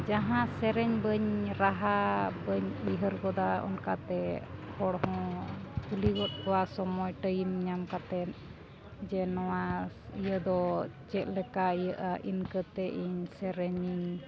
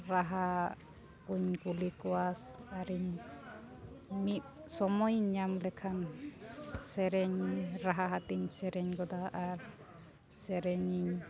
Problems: constant background noise, background conversations at intervals